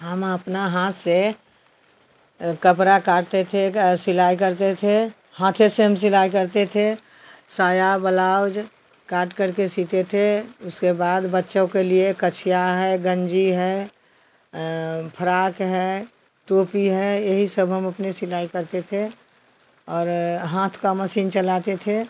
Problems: constant background noise